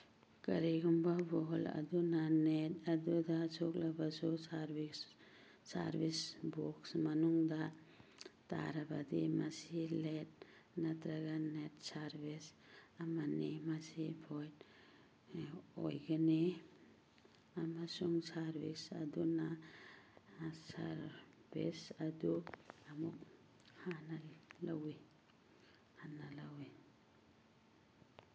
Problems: background sounds at intervals